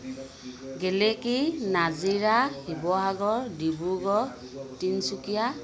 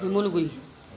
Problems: constant background noise